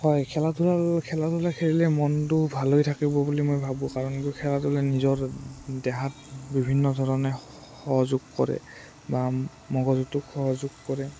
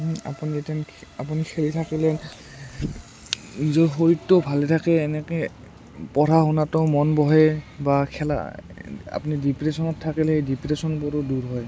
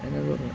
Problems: low volume